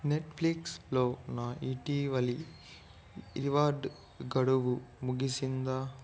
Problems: low volume